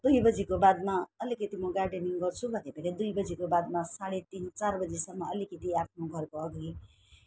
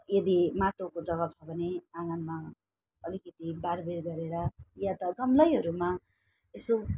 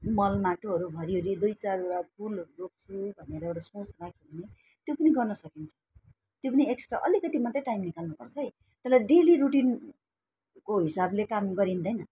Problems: none marked